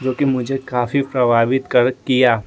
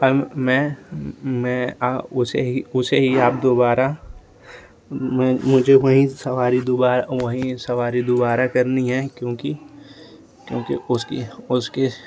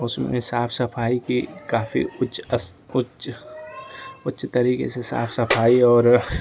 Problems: constant background noise